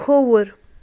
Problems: none marked